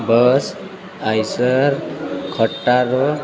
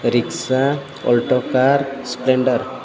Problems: constant background noise